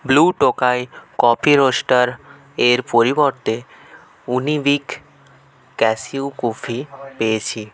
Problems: continuous background conversations